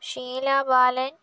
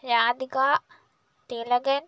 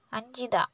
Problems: none marked